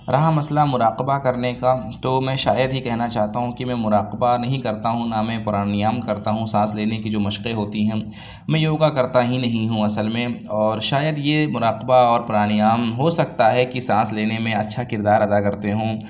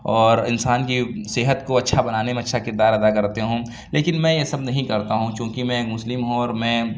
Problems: none marked